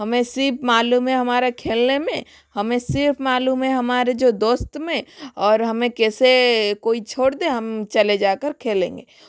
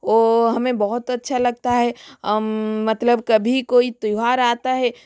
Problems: constant background noise